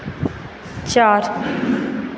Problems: constant background noise